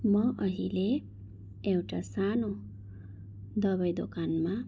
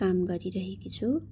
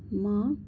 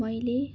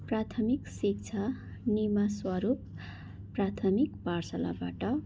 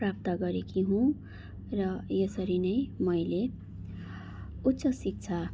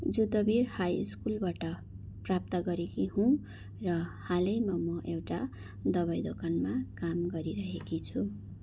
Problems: none marked